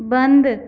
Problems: none marked